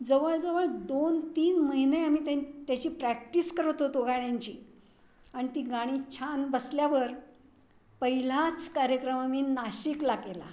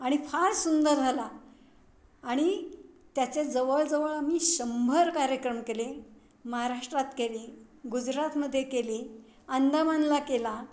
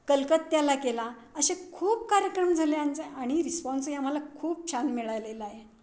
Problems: none marked